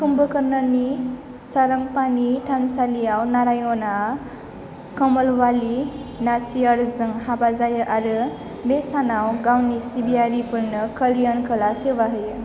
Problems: constant background noise